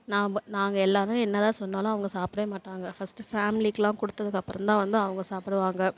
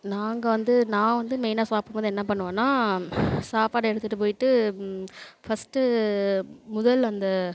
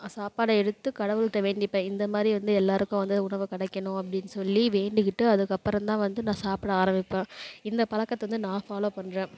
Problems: none marked